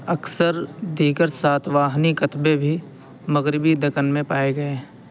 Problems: constant background noise